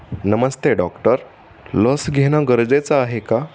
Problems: constant background noise